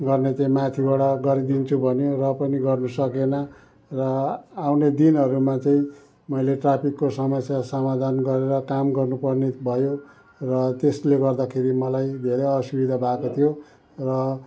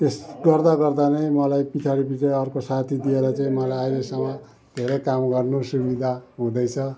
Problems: background sounds at intervals